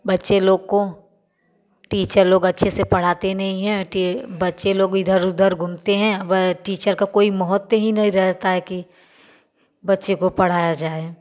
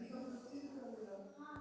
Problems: none marked